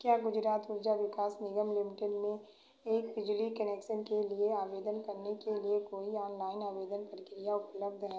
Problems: none marked